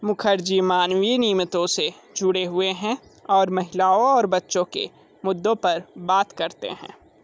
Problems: none marked